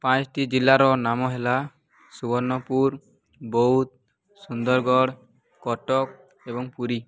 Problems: none marked